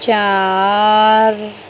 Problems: constant background noise